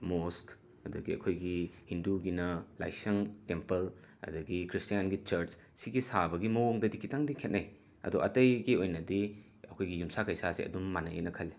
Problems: background sounds at intervals